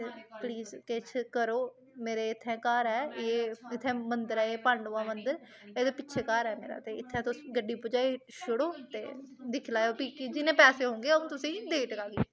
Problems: constant background noise, background conversations at intervals